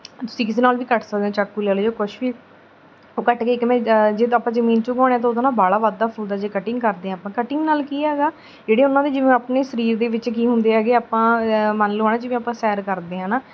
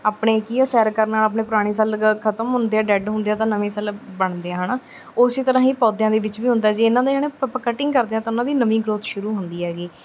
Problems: background sounds at intervals